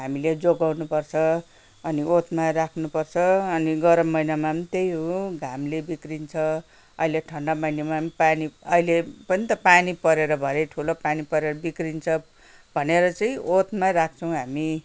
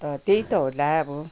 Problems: none marked